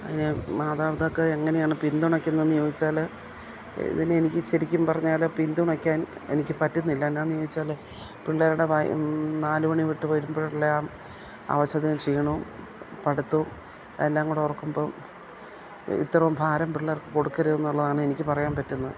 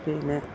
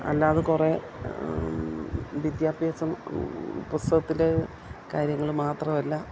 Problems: none marked